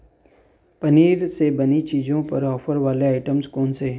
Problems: constant background noise